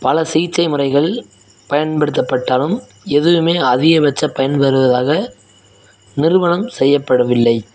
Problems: none marked